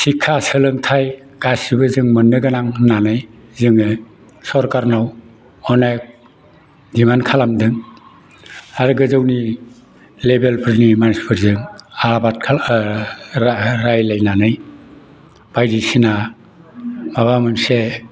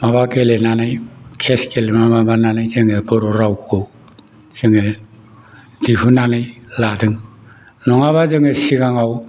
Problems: background conversations at intervals